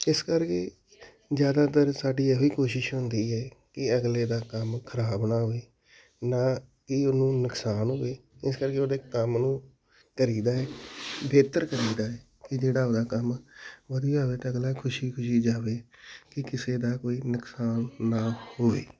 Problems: background sounds at intervals